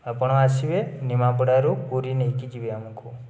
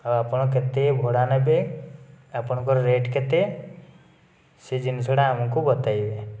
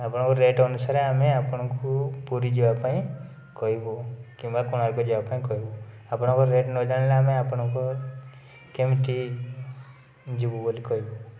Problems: constant background noise